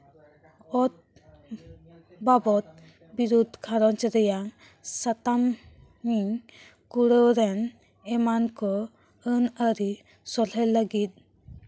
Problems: background sounds at intervals